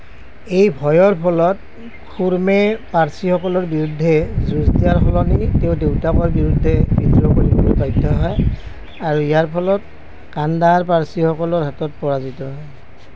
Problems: constant background noise